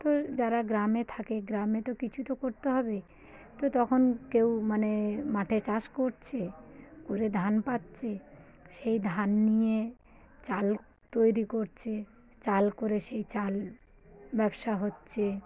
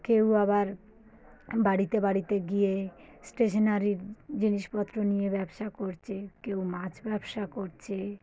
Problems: background sounds at intervals, low volume